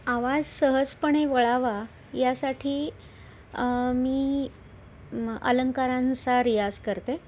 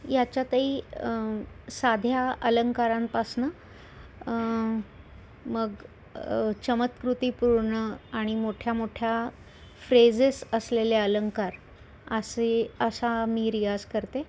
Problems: constant background noise